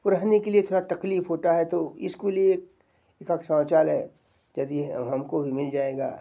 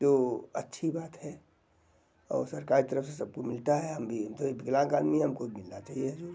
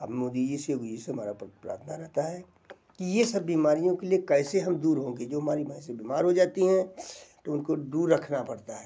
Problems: constant background noise